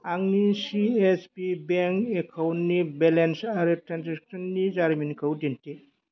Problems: none marked